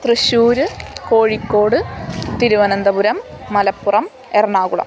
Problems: constant background noise